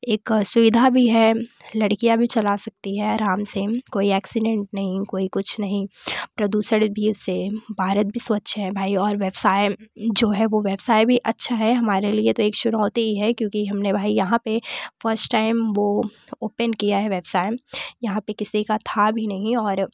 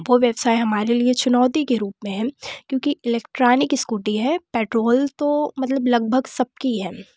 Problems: none marked